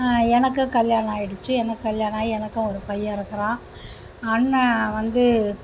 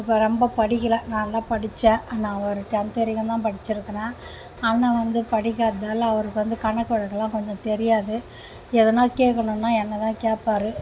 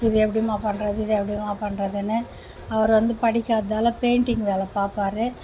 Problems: background sounds at intervals